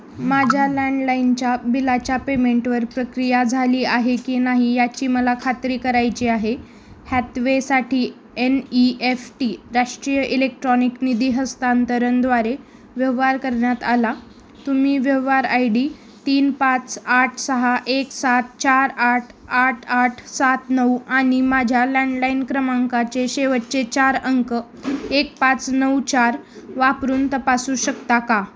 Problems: constant background noise